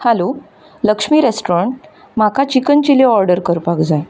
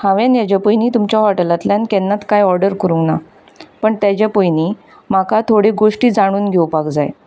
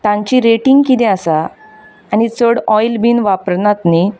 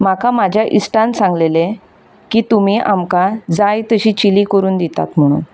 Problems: background sounds at intervals